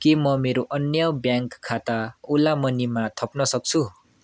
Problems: none marked